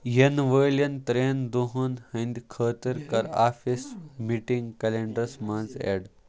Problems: background sounds at intervals